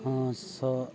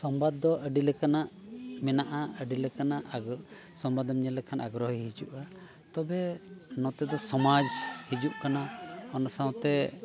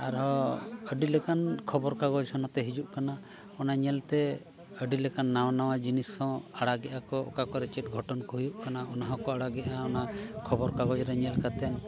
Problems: continuous background conversations